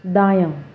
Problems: background sounds at intervals